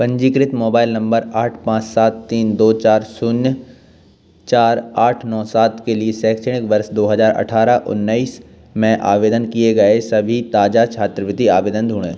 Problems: background sounds at intervals